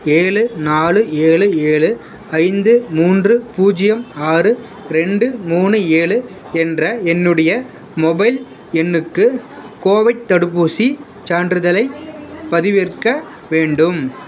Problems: background sounds at intervals